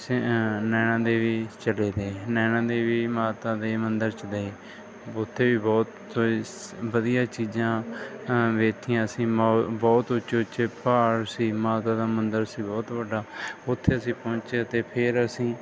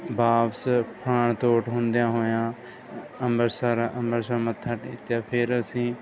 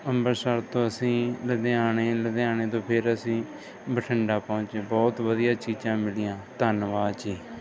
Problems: background sounds at intervals